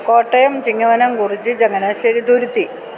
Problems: constant background noise